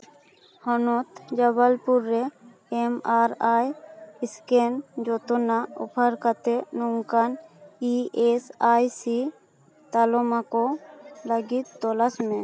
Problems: none marked